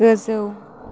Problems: none marked